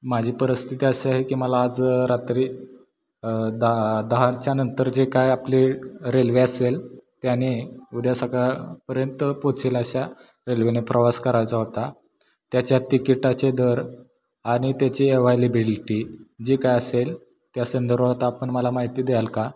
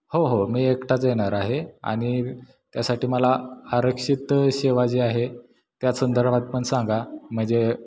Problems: background sounds at intervals, echo